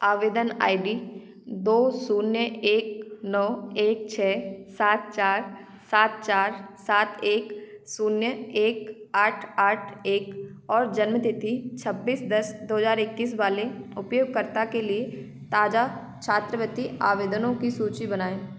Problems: constant background noise